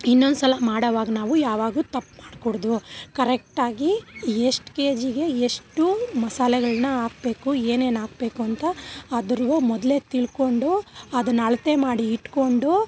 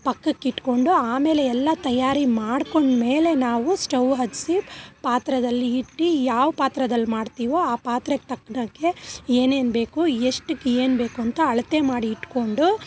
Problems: background sounds at intervals